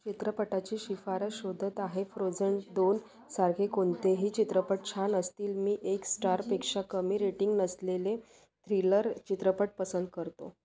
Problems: none marked